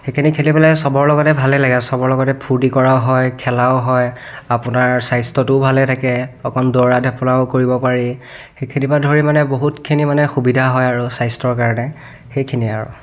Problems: background sounds at intervals, background conversations at intervals